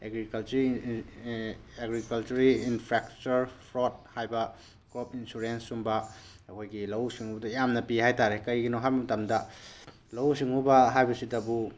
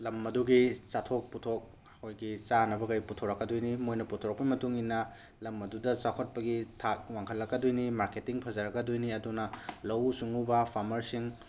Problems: none marked